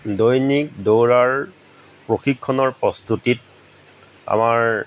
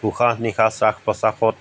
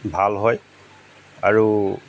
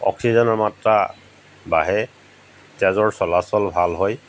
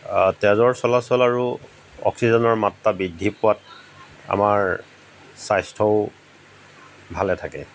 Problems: background sounds at intervals